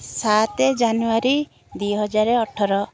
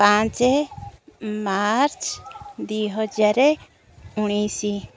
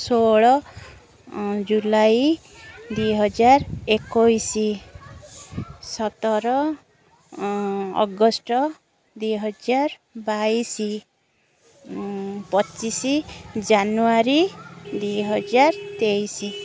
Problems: constant background noise